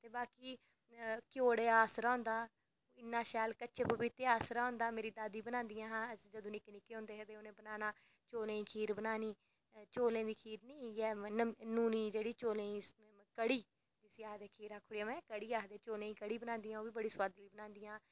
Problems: background sounds at intervals